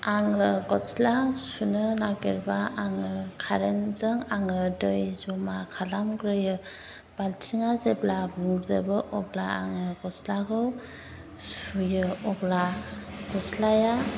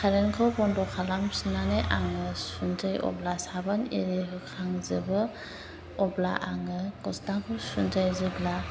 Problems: constant background noise